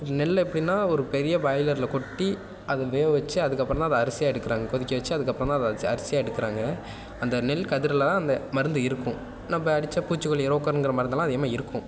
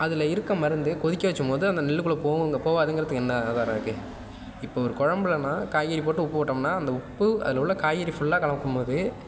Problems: constant background noise